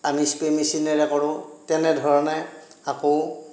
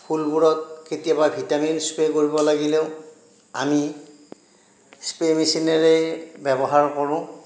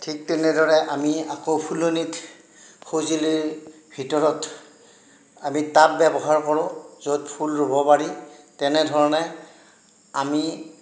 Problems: none marked